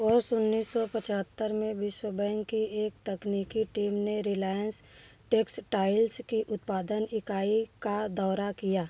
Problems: none marked